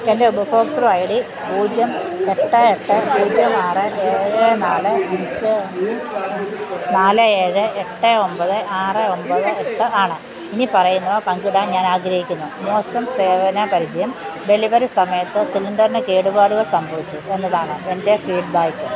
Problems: constant background noise